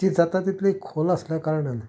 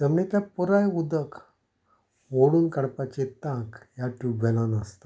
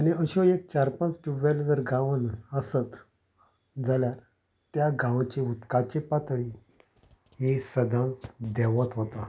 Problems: background sounds at intervals